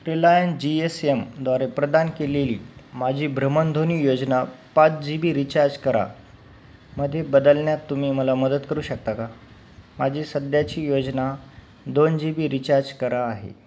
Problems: background sounds at intervals